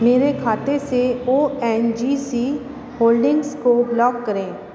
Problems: none marked